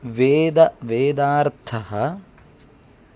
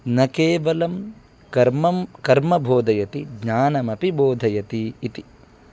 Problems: background conversations at intervals